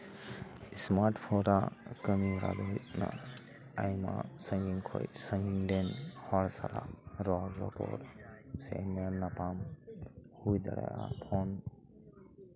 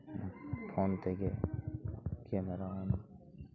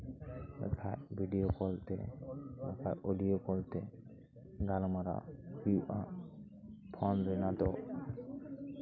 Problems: constant background noise, continuous background conversations